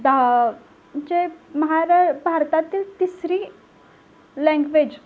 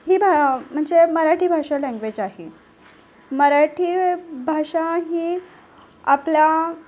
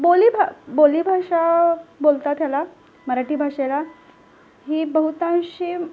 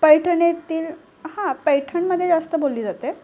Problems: none marked